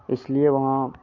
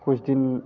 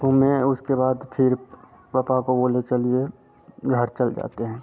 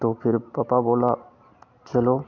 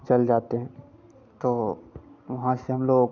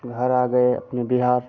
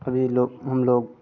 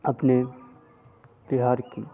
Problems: constant background noise